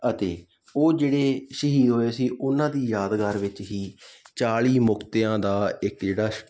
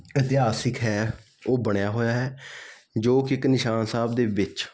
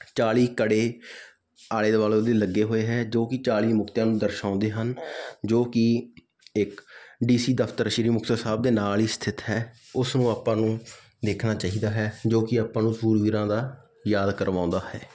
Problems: background sounds at intervals